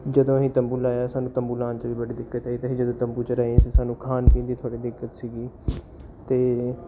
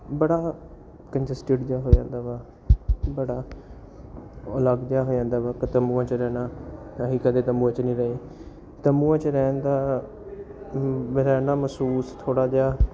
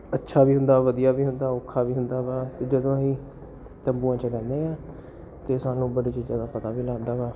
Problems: none marked